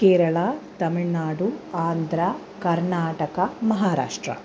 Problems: constant background noise